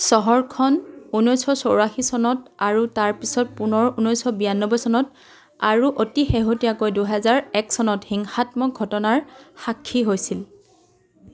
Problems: continuous background conversations